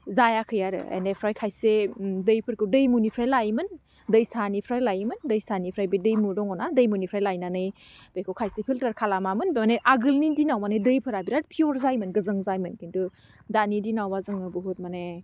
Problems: none marked